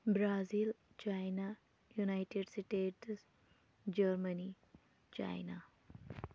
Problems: constant background noise, low volume